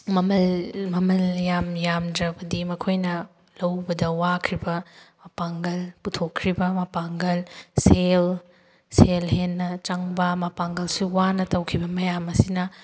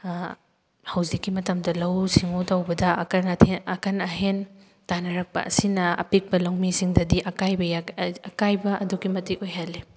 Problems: background sounds at intervals